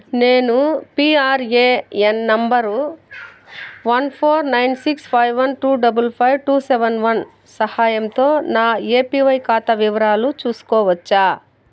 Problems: none marked